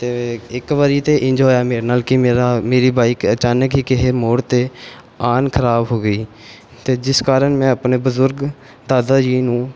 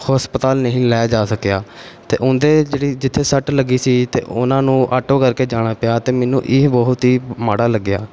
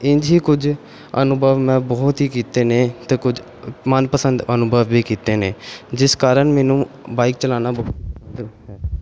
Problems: none marked